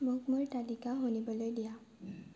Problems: low volume